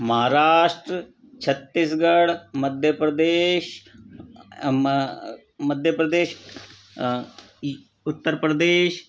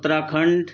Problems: background sounds at intervals